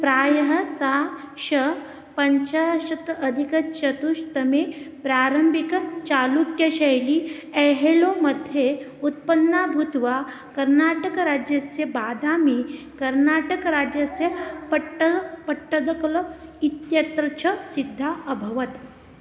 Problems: none marked